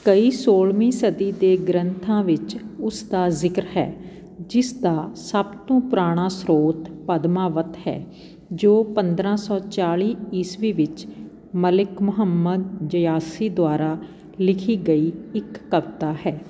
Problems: background sounds at intervals, background conversations at intervals